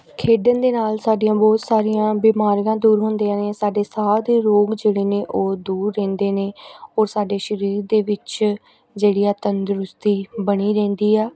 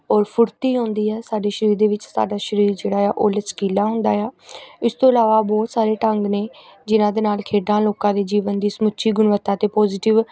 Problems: continuous background conversations